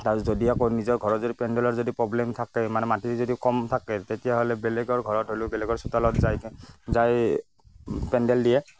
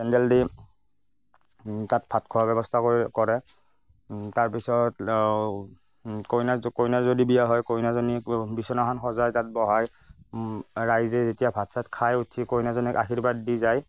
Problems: none marked